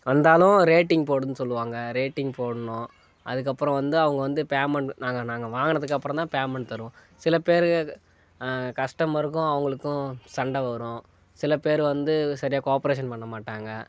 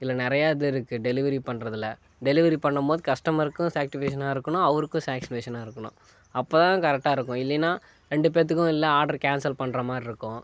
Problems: none marked